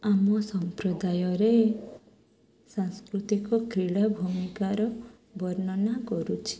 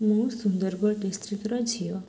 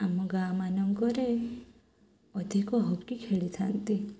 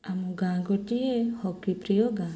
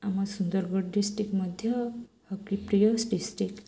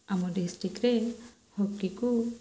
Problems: none marked